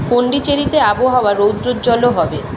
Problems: none marked